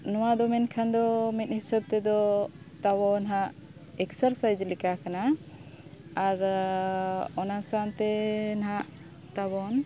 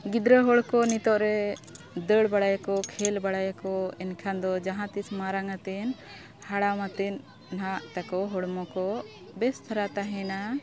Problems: constant background noise, continuous background conversations